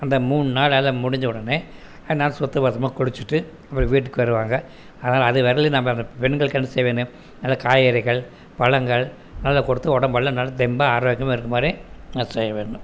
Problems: none marked